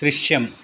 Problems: constant background noise